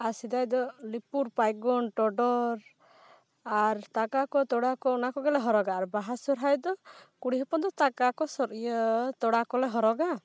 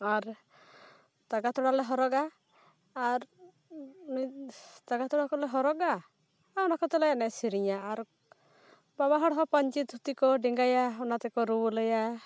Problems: background sounds at intervals